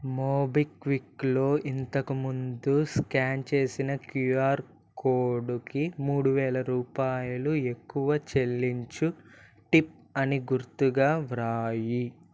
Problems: none marked